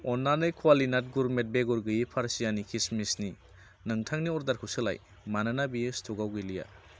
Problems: none marked